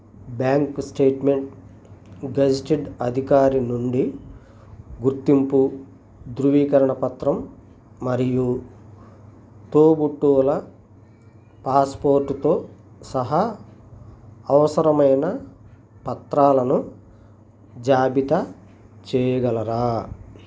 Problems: none marked